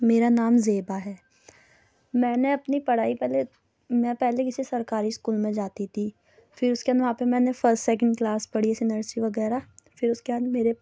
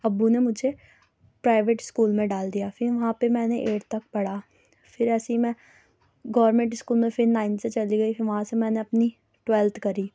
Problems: low volume